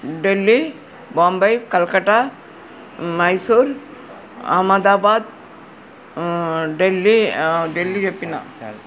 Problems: none marked